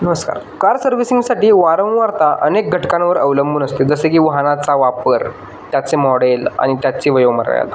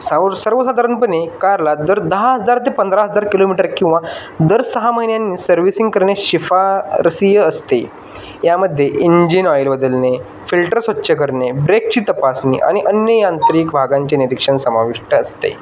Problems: constant background noise